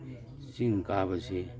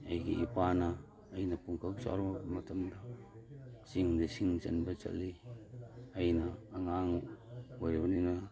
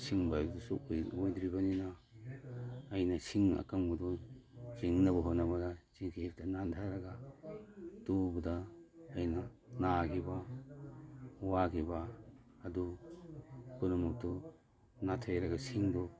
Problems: background sounds at intervals